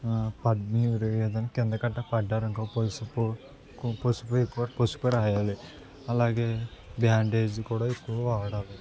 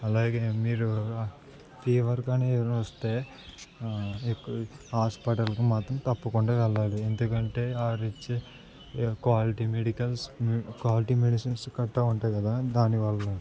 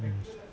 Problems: none marked